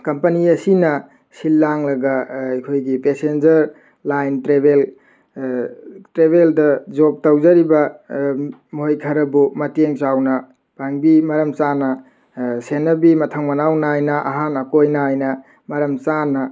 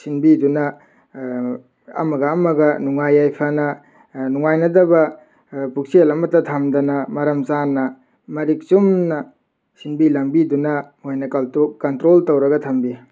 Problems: none marked